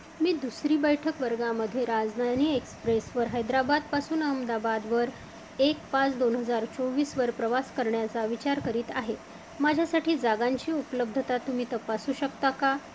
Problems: constant background noise